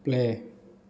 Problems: none marked